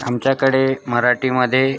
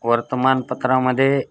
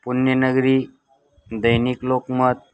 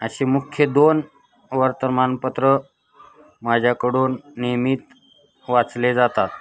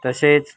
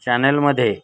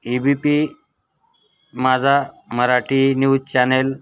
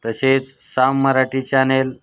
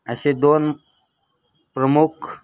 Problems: constant background noise, continuous background conversations